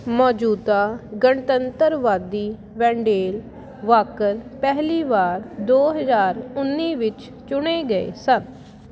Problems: constant background noise